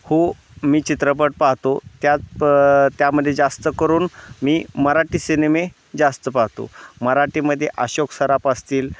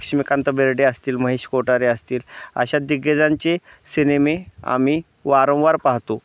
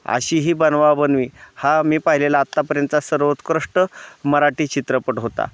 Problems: constant background noise, background conversations at intervals